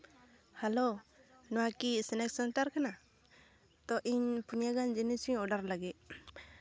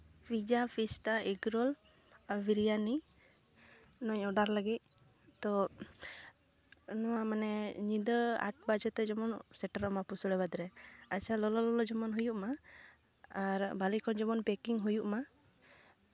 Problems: none marked